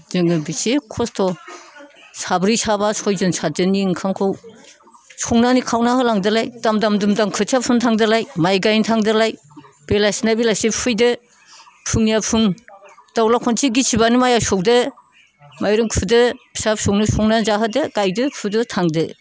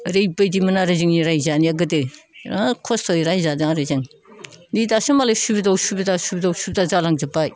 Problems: low volume